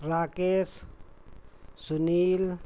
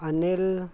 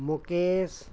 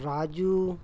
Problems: constant background noise, background conversations at intervals